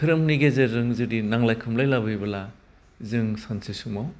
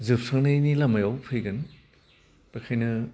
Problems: constant background noise